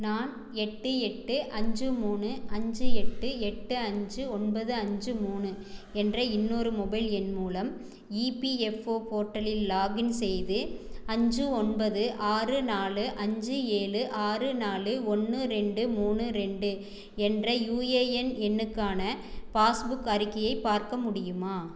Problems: none marked